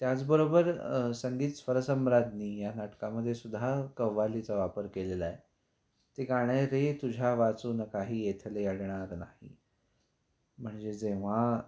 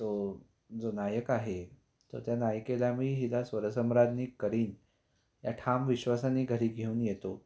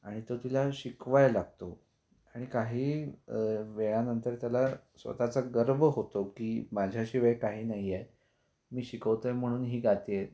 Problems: constant background noise